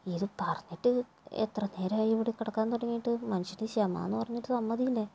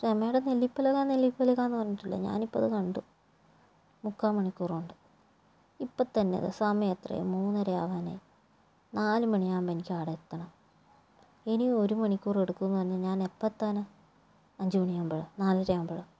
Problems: low volume